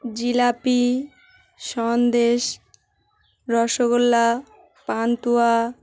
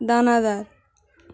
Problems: constant background noise, background conversations at intervals